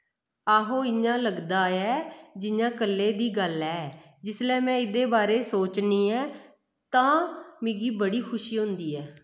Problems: echo